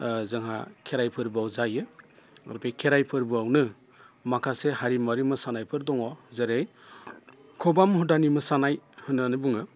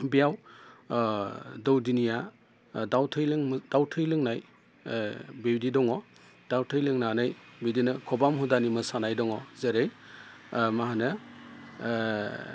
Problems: constant background noise